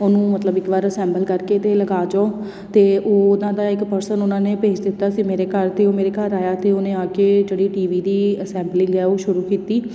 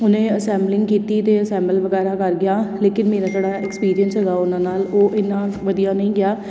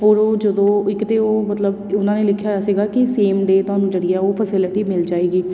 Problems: none marked